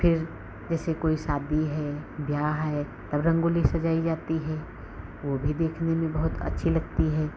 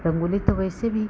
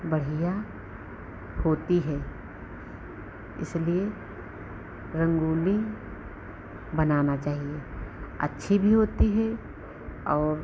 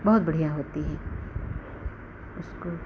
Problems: background sounds at intervals